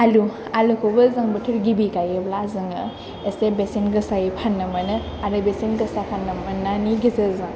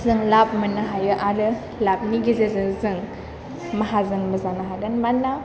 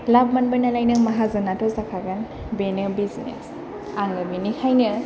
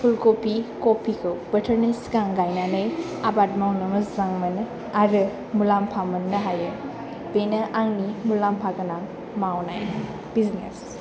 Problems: low volume